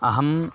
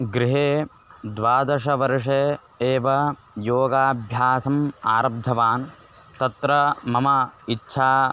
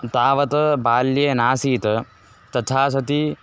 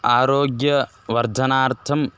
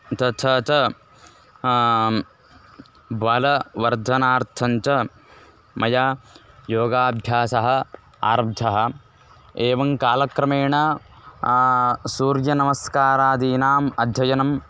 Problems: constant background noise